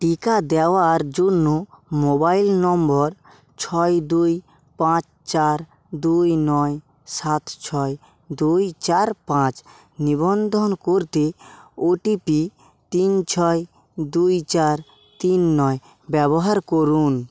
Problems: none marked